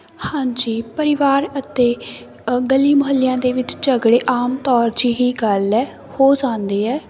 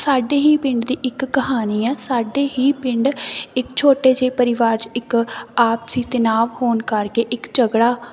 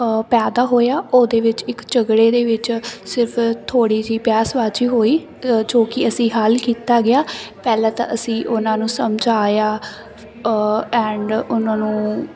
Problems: constant background noise